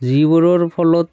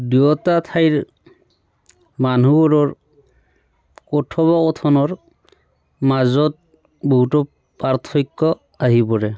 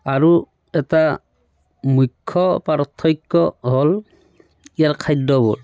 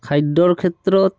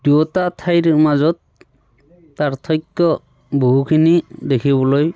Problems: background sounds at intervals